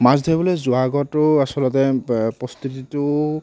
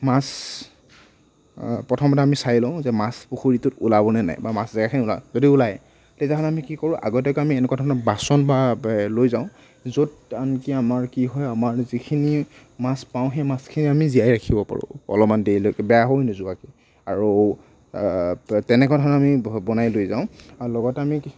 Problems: none marked